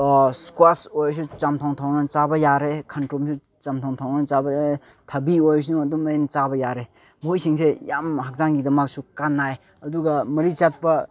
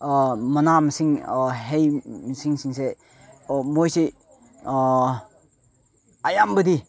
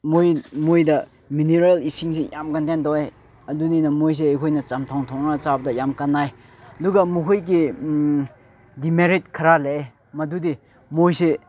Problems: background sounds at intervals, background conversations at intervals